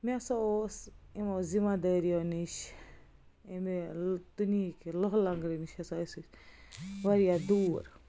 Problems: none marked